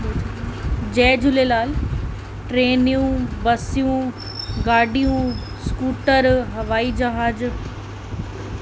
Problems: constant background noise, echo